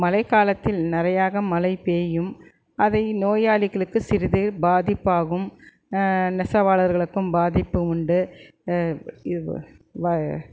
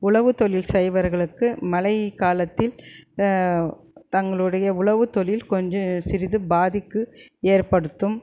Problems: none marked